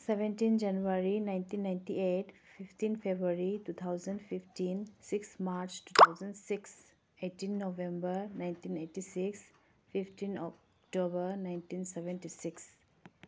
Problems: constant background noise